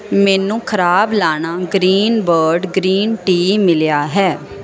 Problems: none marked